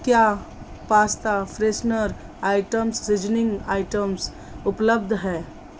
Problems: constant background noise